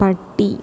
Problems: constant background noise, low volume